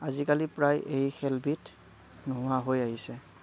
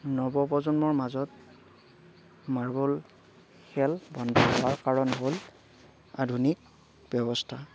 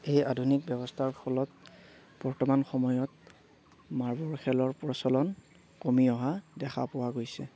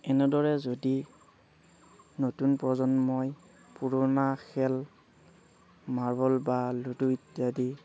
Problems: none marked